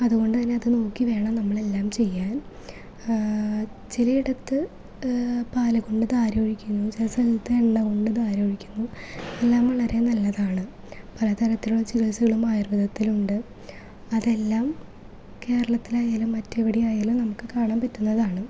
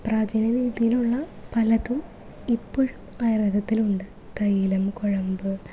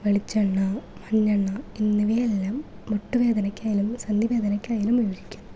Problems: none marked